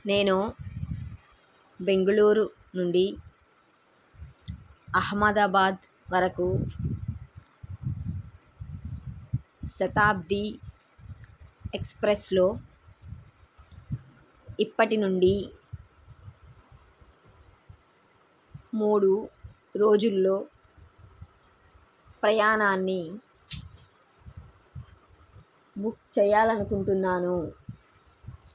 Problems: none marked